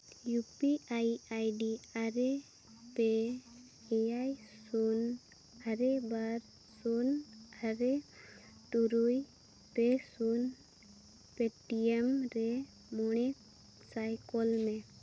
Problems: constant background noise, low volume